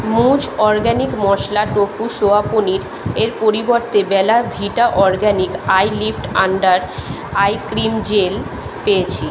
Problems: background conversations at intervals